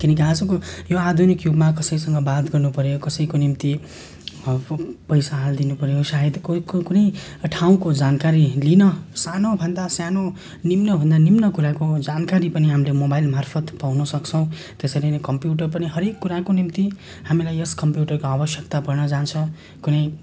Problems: constant background noise